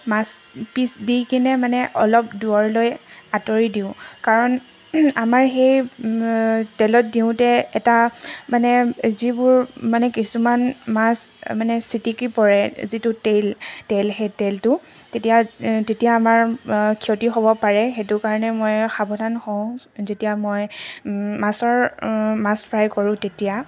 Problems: background sounds at intervals